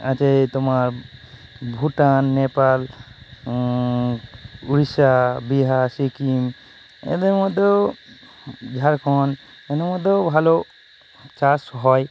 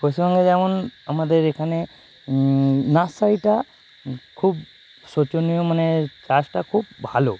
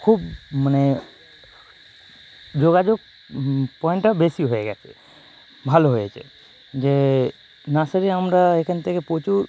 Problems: constant background noise